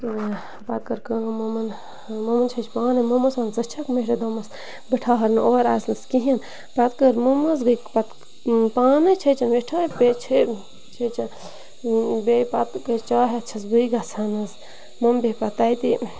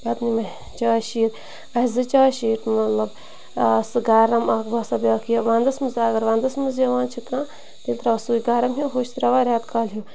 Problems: constant background noise, continuous background conversations